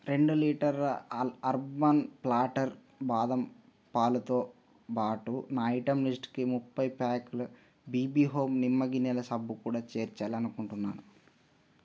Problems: none marked